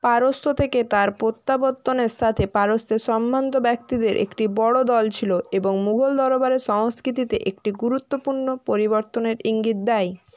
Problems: constant background noise